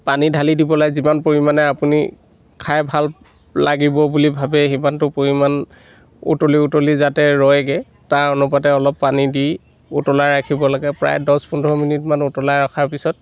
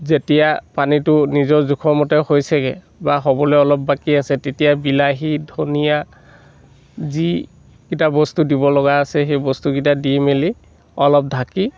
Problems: constant background noise